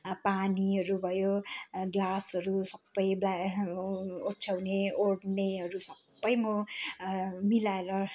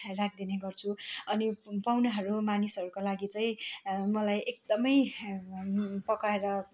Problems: constant background noise